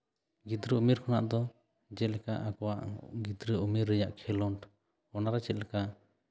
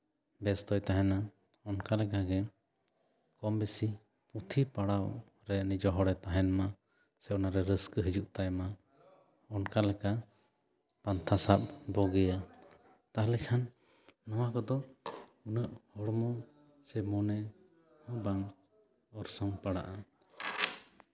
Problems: none marked